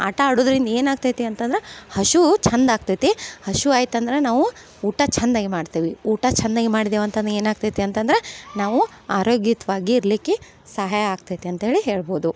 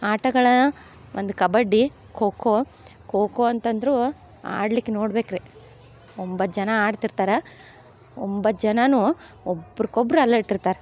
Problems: none marked